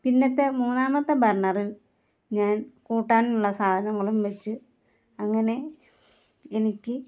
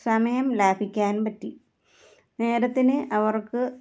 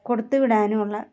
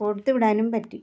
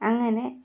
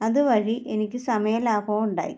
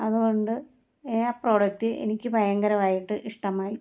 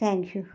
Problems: none marked